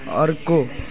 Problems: background sounds at intervals